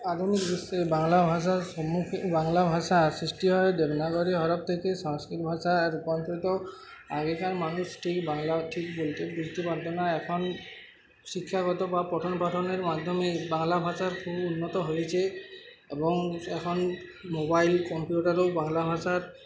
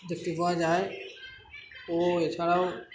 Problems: constant background noise, continuous background conversations